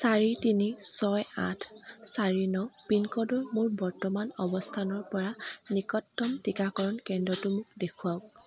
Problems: constant background noise, background conversations at intervals